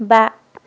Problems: none marked